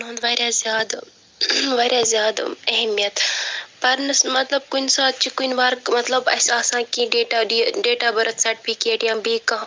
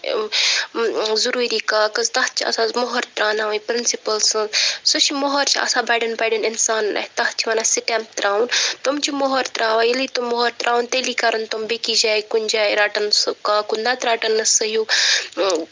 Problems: background sounds at intervals